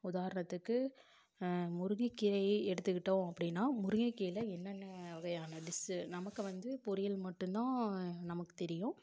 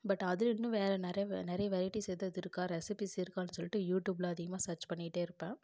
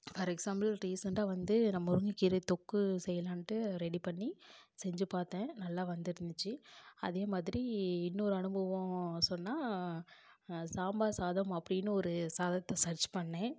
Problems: low volume